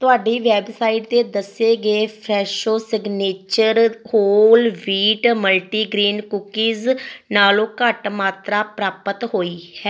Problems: background sounds at intervals